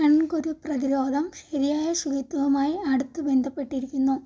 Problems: low volume